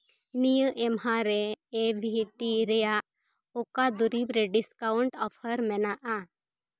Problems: background conversations at intervals